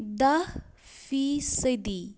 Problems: background sounds at intervals